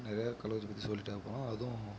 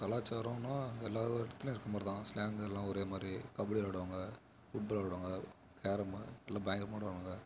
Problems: background sounds at intervals